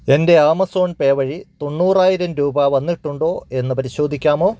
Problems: none marked